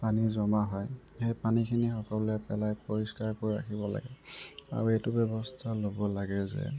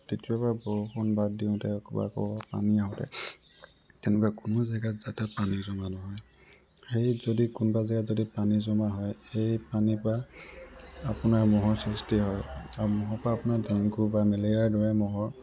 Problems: constant background noise, background conversations at intervals